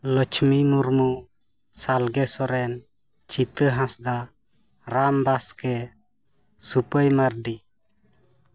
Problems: none marked